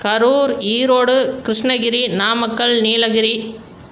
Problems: none marked